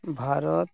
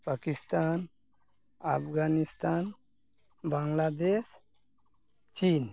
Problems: none marked